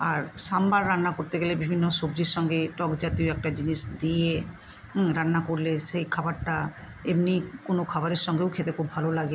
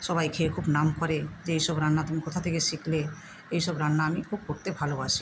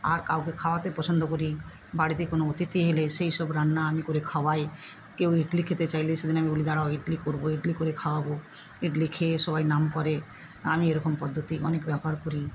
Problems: constant background noise